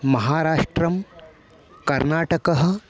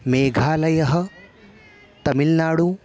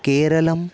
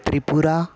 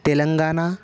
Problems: background sounds at intervals